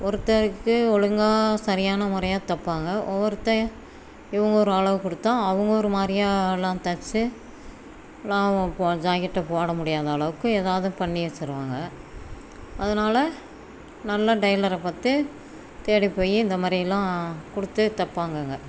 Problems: constant background noise